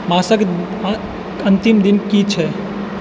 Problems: constant background noise